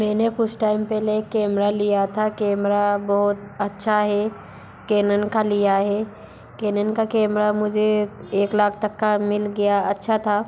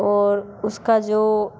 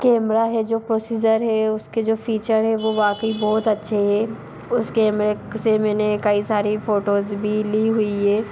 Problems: background sounds at intervals